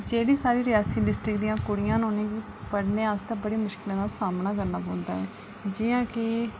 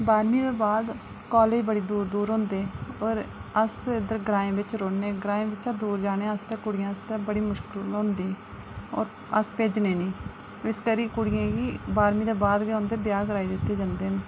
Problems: low volume